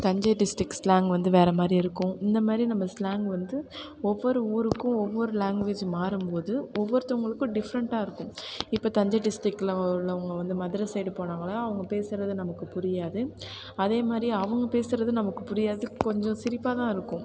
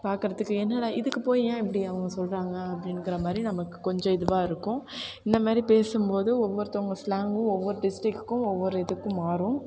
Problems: constant background noise, background conversations at intervals